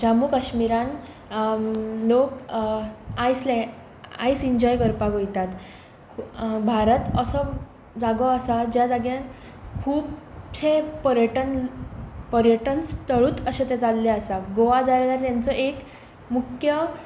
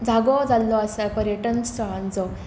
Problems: constant background noise